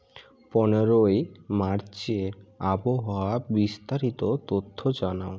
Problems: background sounds at intervals, background conversations at intervals